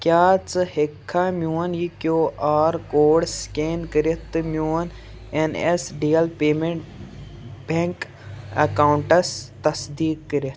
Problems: background sounds at intervals